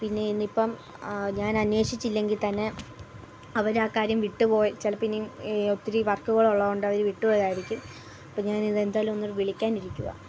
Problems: none marked